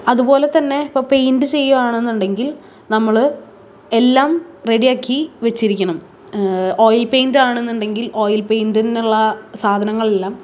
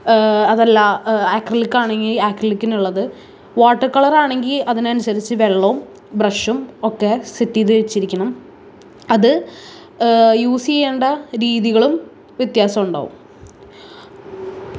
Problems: none marked